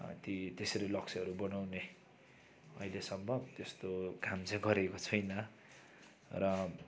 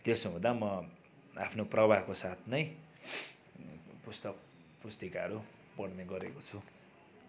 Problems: constant background noise